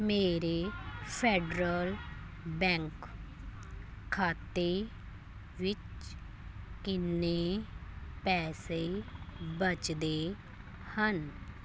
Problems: background sounds at intervals